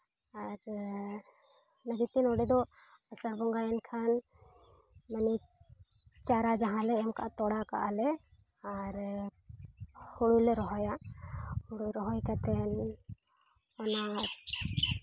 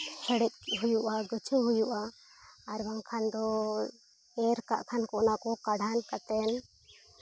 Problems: background sounds at intervals